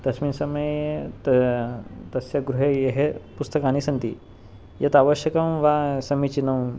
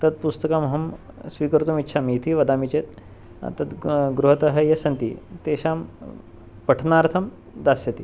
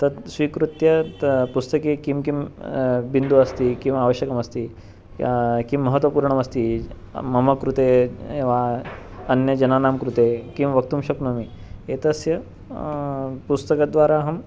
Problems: background sounds at intervals